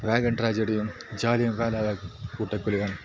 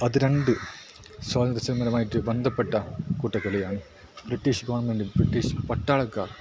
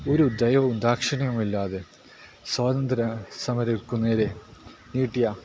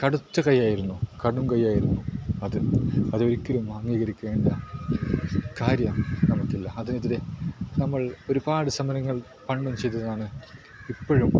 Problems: low volume